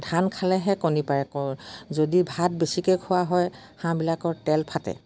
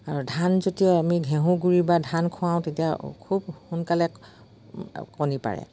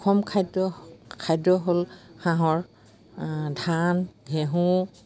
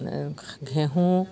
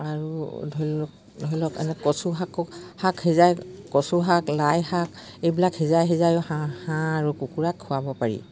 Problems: none marked